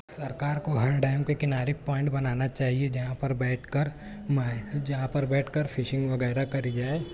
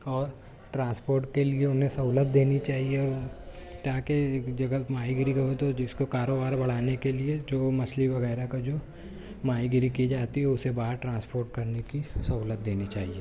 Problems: none marked